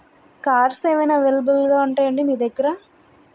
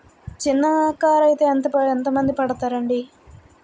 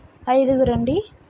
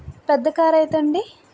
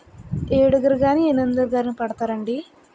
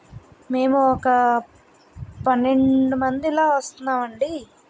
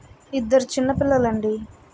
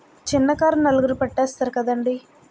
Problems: constant background noise